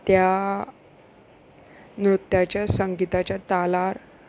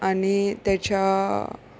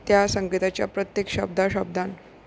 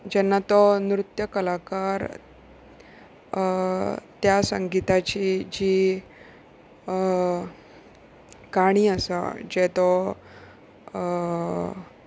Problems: background sounds at intervals